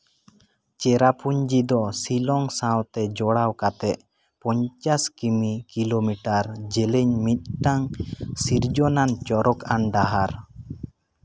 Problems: background sounds at intervals